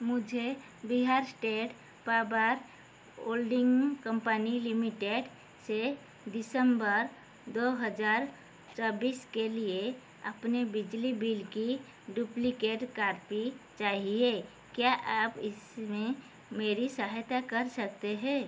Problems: constant background noise